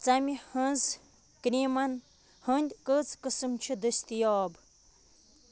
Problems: constant background noise